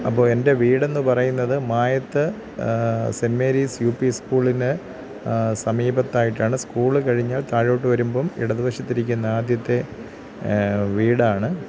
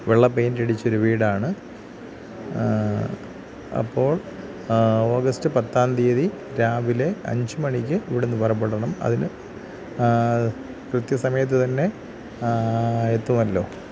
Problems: constant background noise